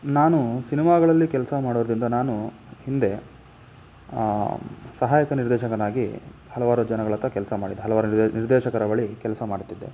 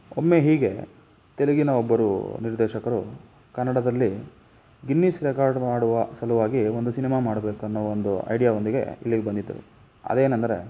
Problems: none marked